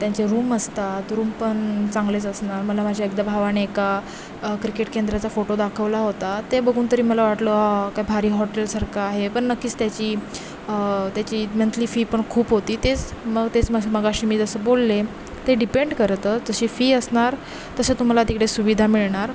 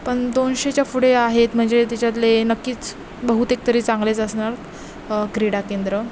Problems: constant background noise, background conversations at intervals